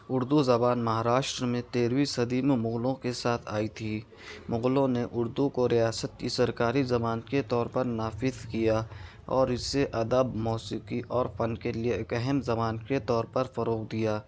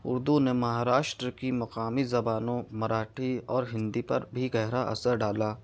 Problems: none marked